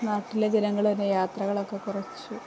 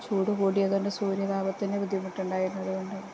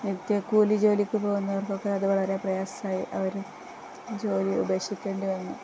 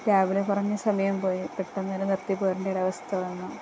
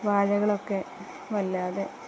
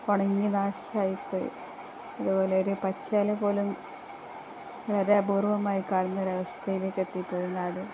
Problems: constant background noise, low volume